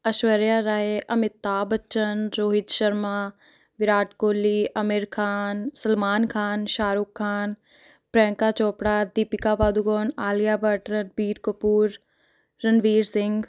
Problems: none marked